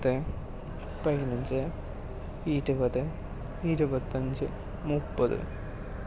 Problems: low volume